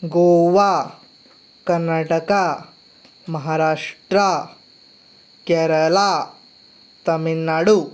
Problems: none marked